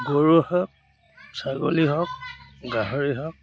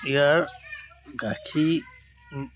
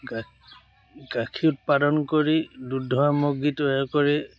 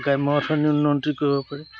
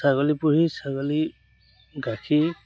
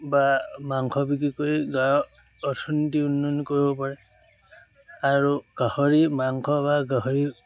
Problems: background sounds at intervals